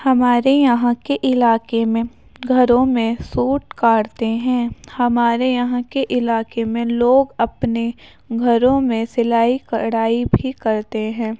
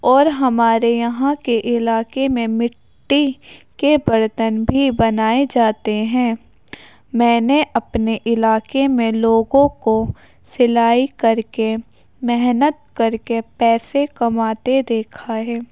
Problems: none marked